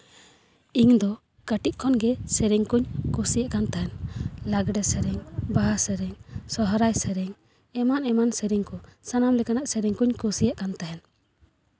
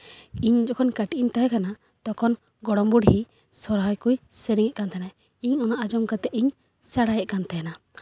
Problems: none marked